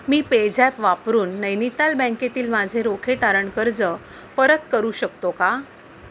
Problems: constant background noise